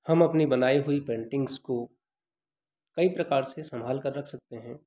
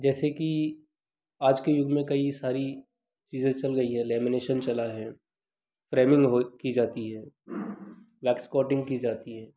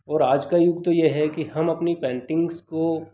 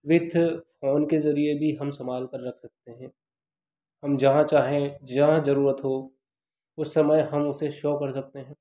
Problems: constant background noise